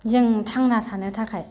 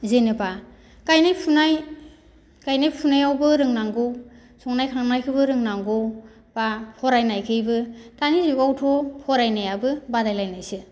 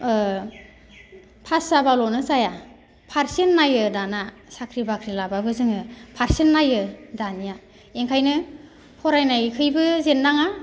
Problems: none marked